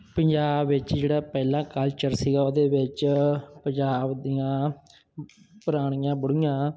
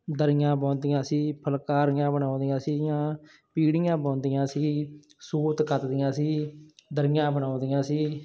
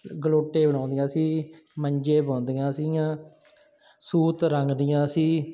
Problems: background sounds at intervals